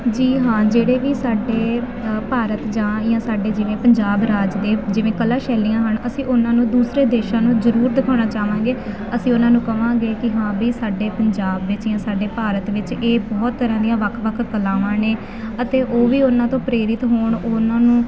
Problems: constant background noise